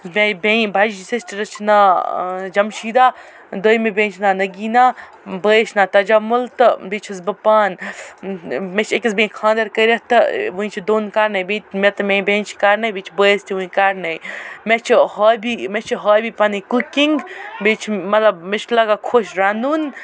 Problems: none marked